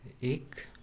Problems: none marked